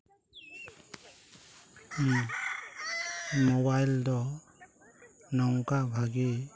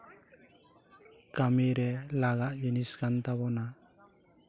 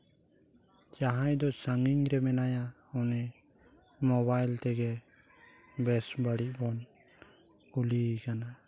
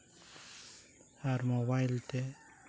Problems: low volume